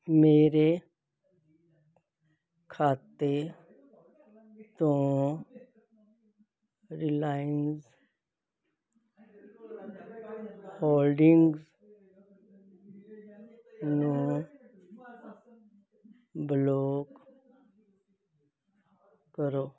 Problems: continuous background conversations